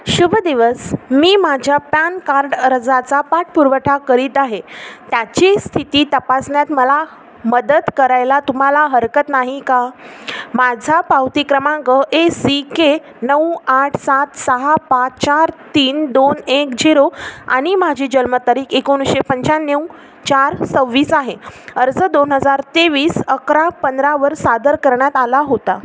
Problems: constant background noise